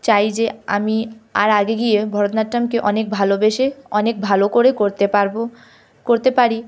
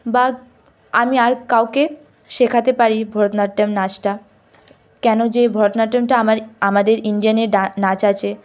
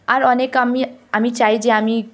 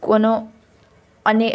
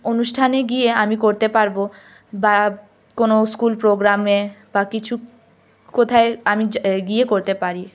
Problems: background sounds at intervals